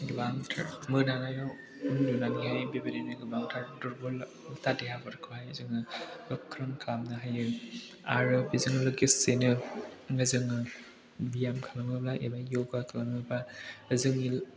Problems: background conversations at intervals